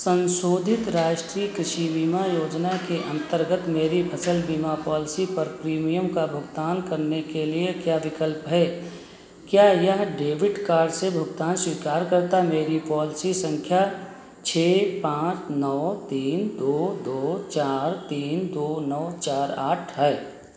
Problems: none marked